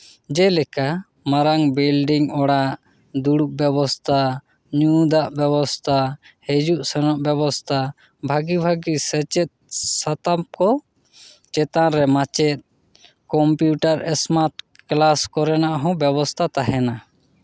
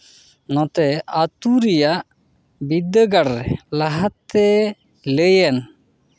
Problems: none marked